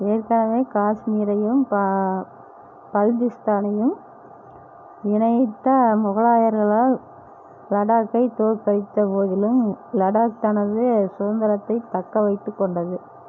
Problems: low volume